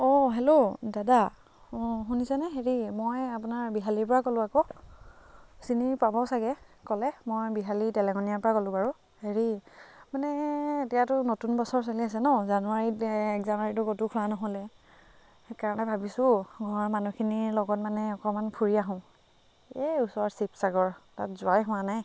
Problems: constant background noise